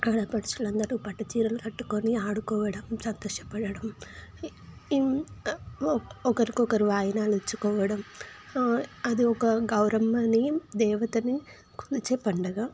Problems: constant background noise